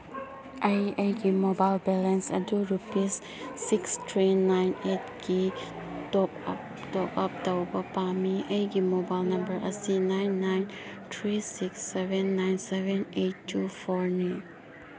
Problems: constant background noise